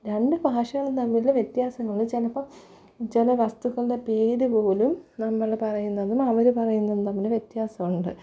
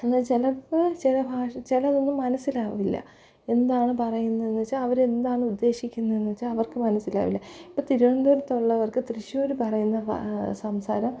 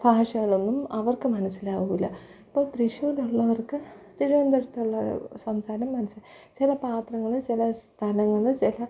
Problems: low volume